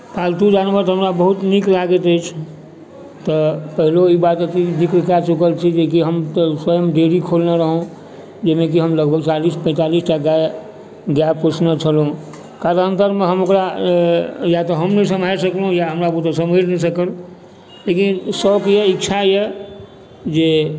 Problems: constant background noise, background conversations at intervals